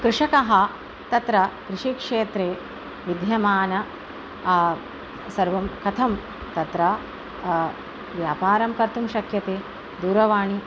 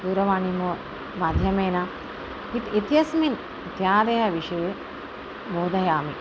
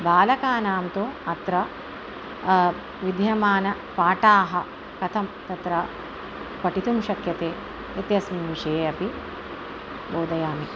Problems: none marked